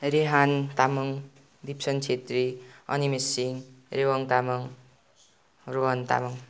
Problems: none marked